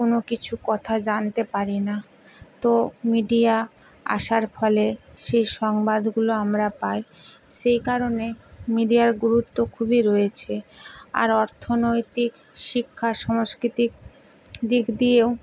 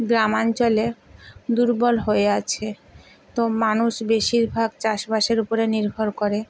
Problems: constant background noise